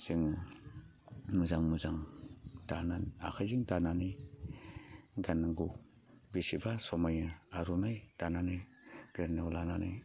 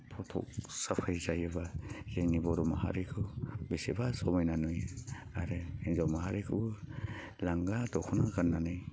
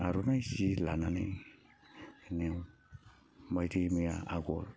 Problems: constant background noise